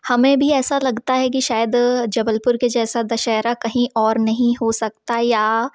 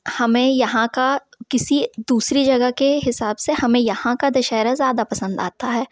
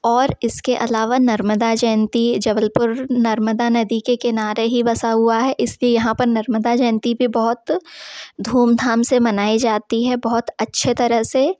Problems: background sounds at intervals